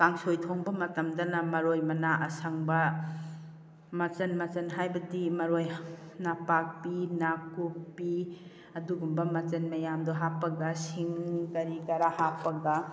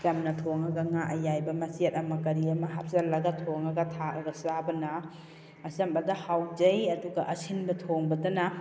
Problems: none marked